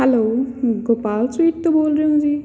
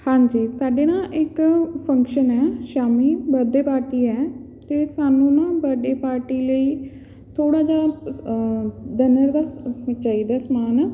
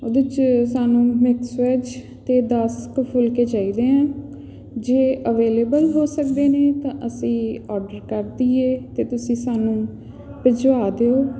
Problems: constant background noise